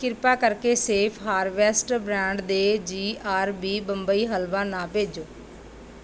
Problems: background sounds at intervals